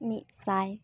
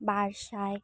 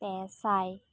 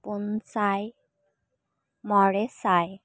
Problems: none marked